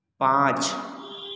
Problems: constant background noise, echo